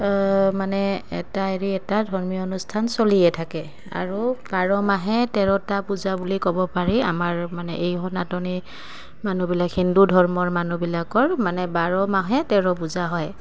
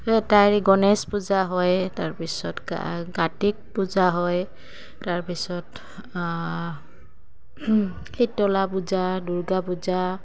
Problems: background sounds at intervals